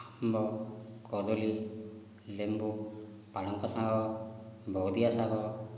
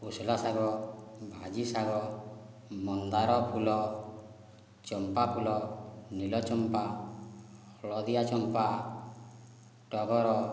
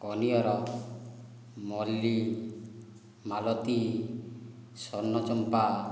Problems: low volume